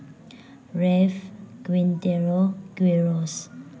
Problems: background sounds at intervals, low volume